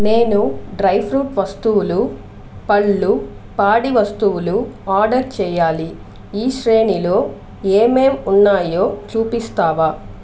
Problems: constant background noise